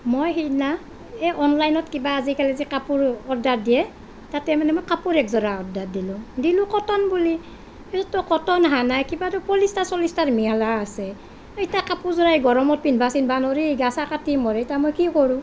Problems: none marked